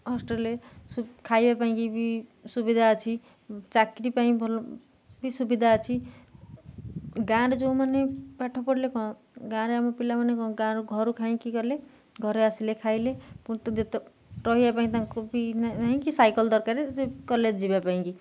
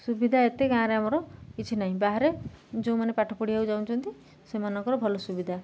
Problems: none marked